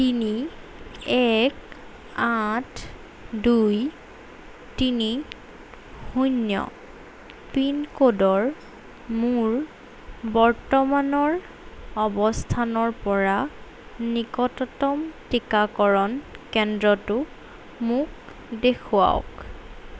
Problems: none marked